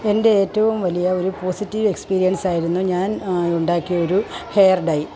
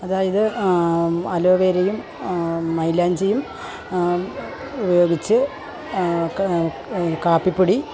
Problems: constant background noise, low volume